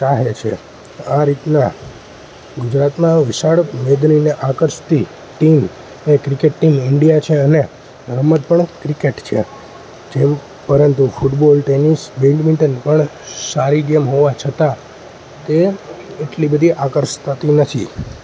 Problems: constant background noise